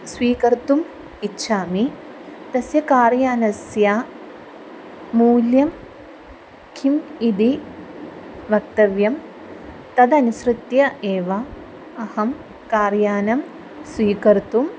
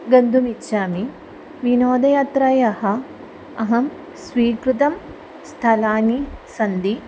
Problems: background sounds at intervals